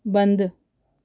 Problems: none marked